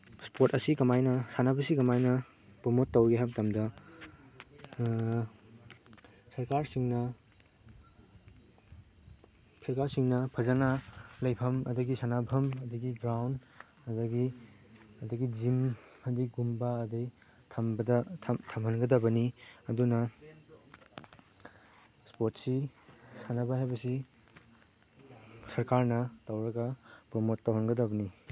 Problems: background sounds at intervals, background conversations at intervals